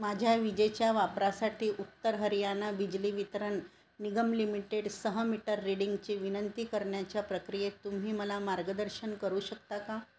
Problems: none marked